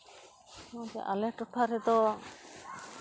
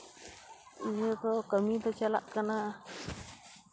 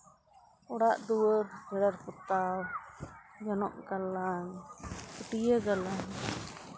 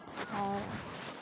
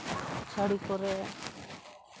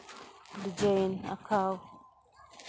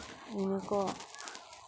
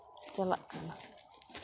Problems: background sounds at intervals